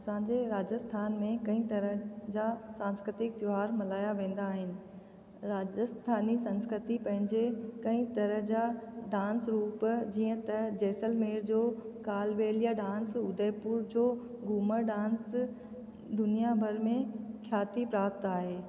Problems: constant background noise, echo